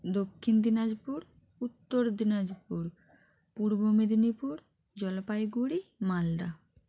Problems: constant background noise